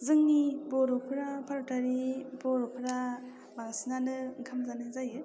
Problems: low volume